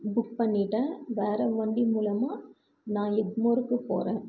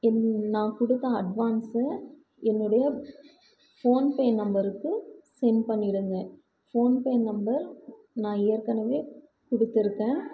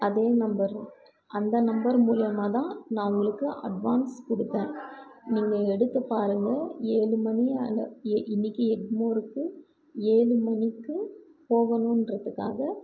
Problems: background conversations at intervals